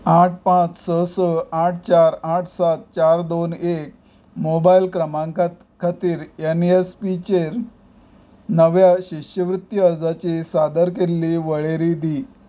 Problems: background sounds at intervals